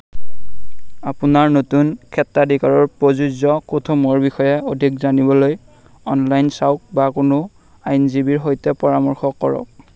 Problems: constant background noise